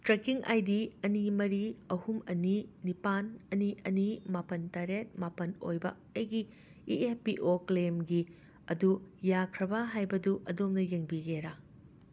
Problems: constant background noise